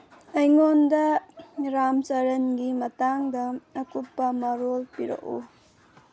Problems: background sounds at intervals